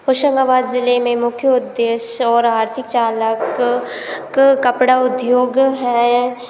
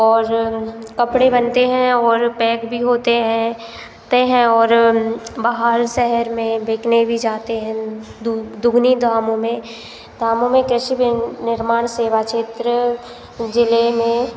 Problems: constant background noise